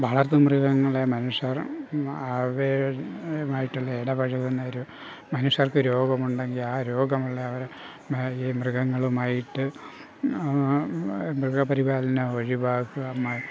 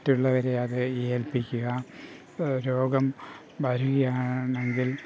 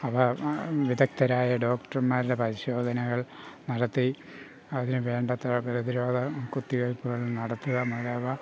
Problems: constant background noise